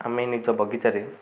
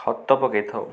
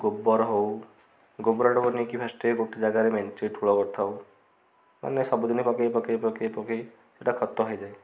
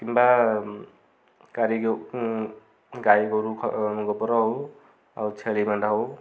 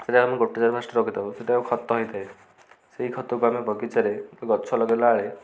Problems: constant background noise, continuous background conversations